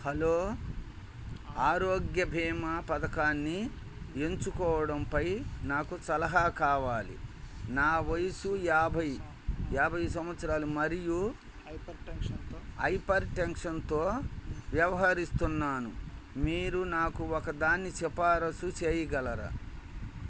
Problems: background conversations at intervals